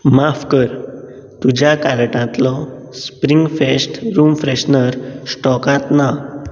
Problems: background sounds at intervals